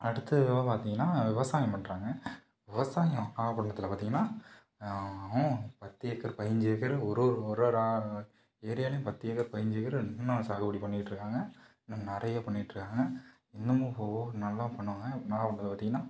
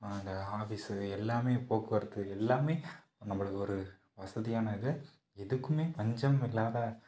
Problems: low volume